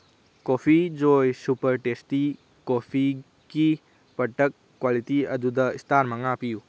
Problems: none marked